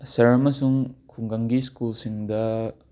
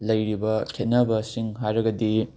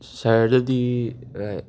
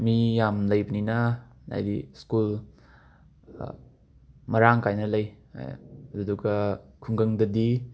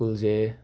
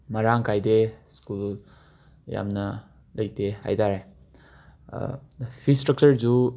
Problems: background sounds at intervals